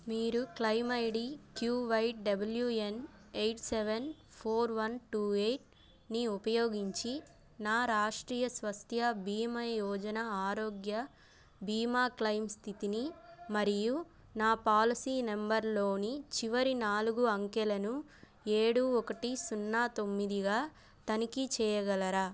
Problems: none marked